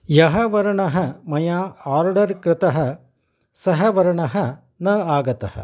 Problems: none marked